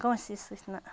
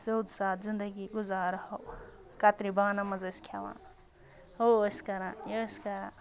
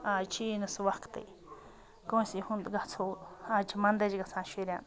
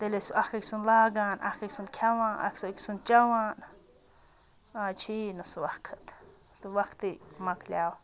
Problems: background sounds at intervals, background conversations at intervals